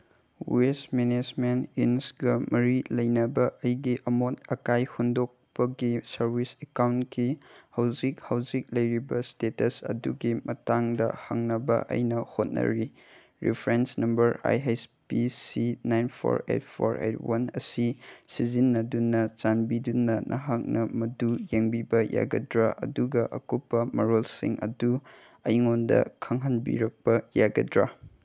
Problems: none marked